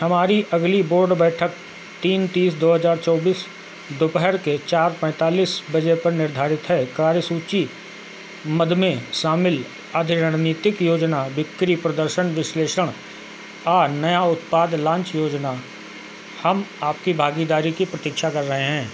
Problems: constant background noise